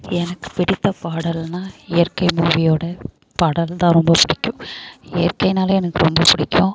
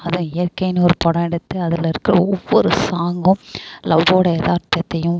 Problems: constant background noise